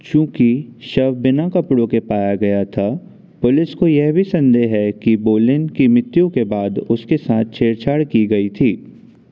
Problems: constant background noise